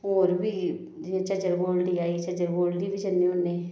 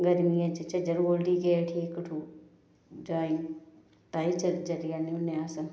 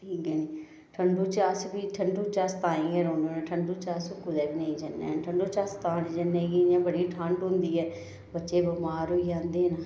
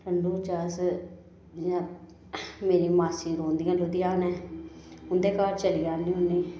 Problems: none marked